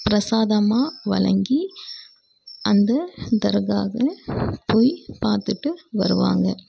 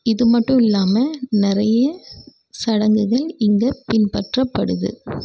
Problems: background sounds at intervals